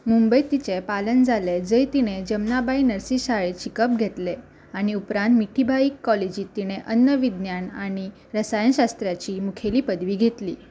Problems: constant background noise